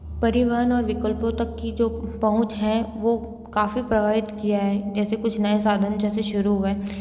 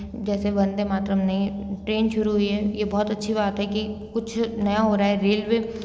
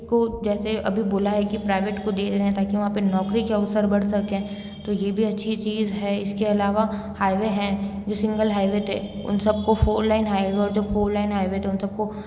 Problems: background sounds at intervals, background conversations at intervals